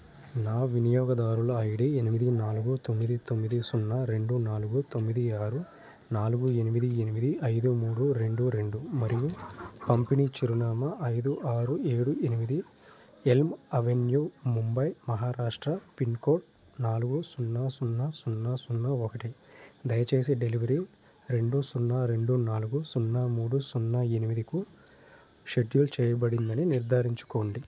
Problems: none marked